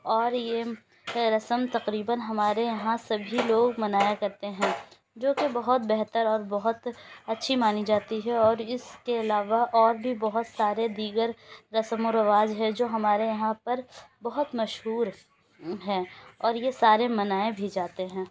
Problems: constant background noise